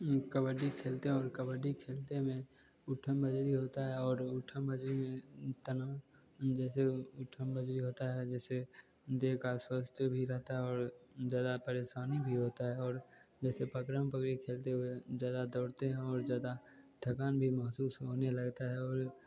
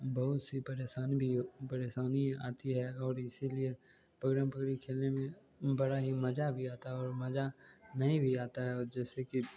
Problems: none marked